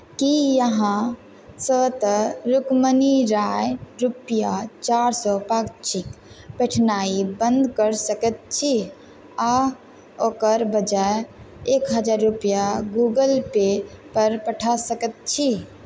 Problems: constant background noise